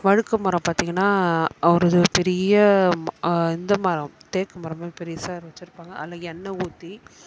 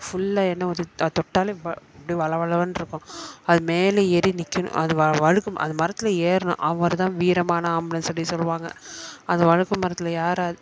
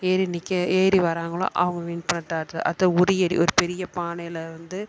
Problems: constant background noise